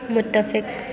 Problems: none marked